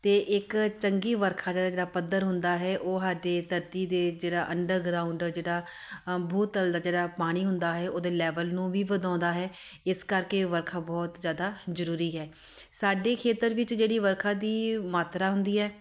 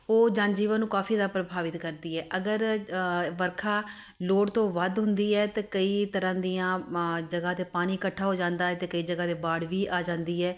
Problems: none marked